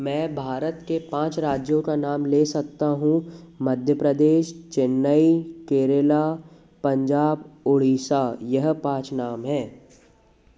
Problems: constant background noise, background conversations at intervals